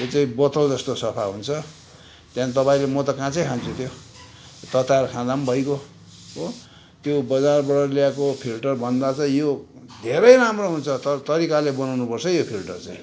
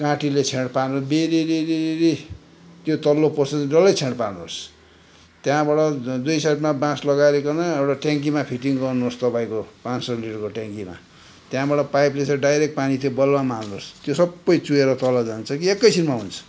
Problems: none marked